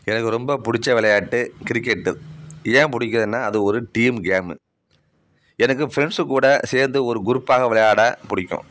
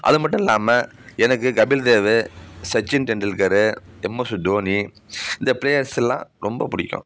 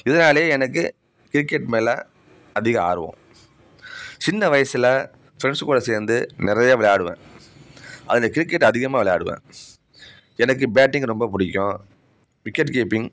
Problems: background sounds at intervals